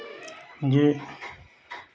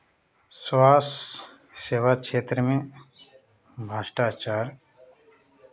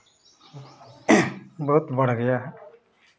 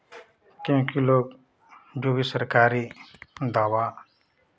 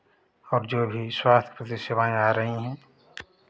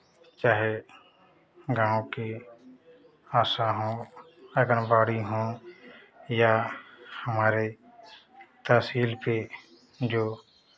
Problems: constant background noise, continuous background conversations